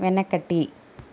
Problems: constant background noise